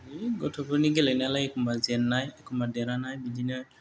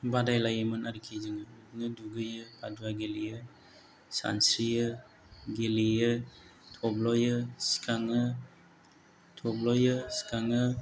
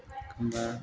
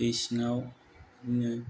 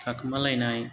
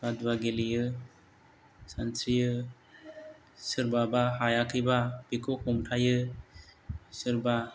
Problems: none marked